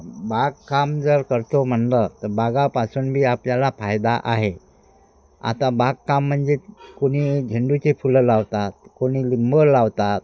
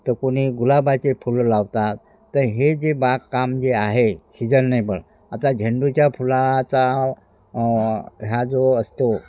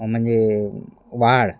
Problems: none marked